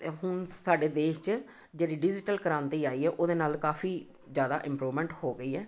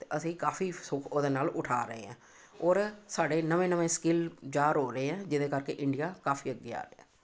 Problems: none marked